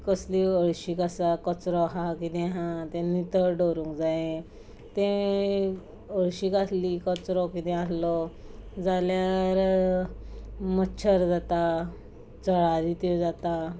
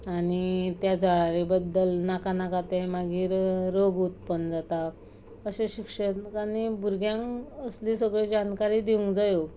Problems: constant background noise